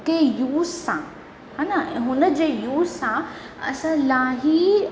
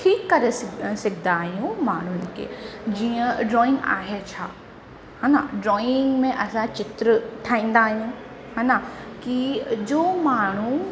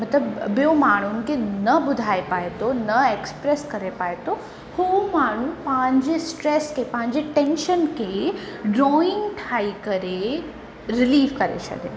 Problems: constant background noise, echo